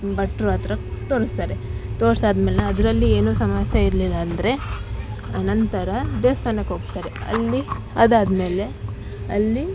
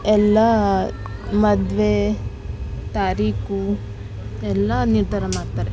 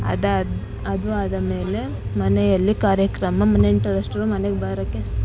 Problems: constant background noise